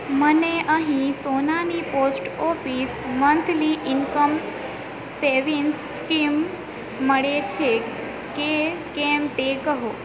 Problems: constant background noise